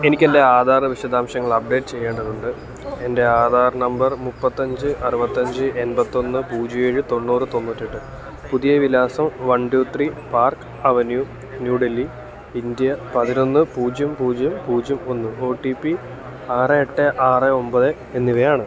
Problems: constant background noise